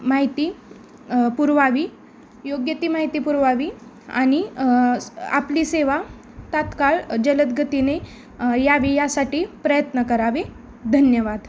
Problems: constant background noise